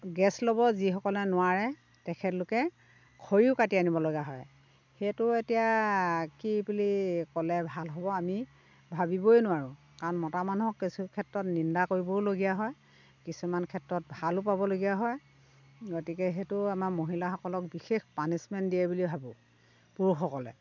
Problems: constant background noise